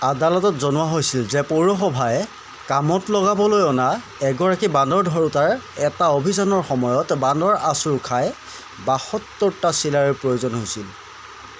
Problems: none marked